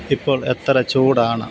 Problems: none marked